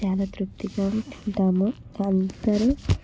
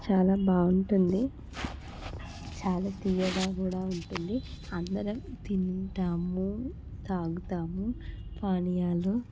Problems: none marked